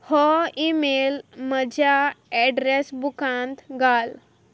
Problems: none marked